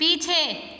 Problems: none marked